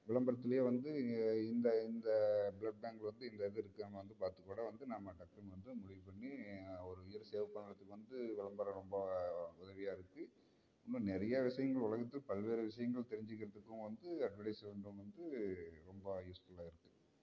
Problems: none marked